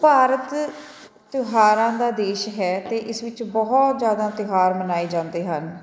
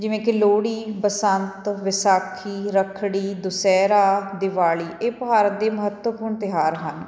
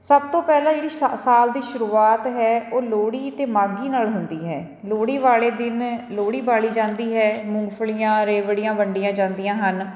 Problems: continuous background conversations